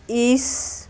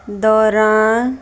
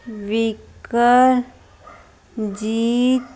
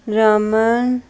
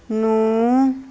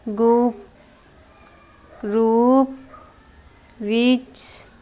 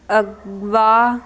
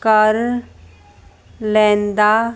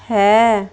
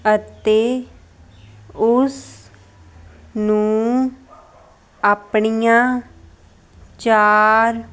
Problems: constant background noise